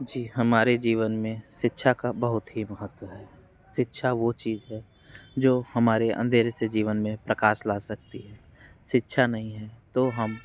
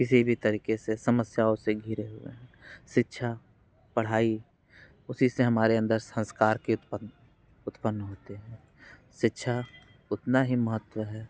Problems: none marked